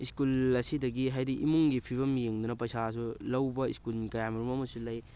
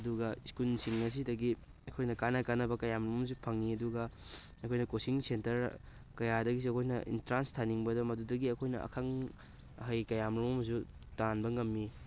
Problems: constant background noise